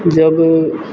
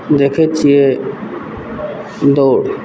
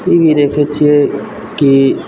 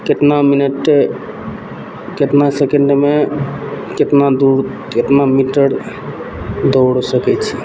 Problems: background sounds at intervals